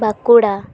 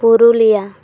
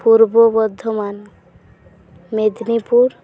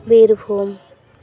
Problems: none marked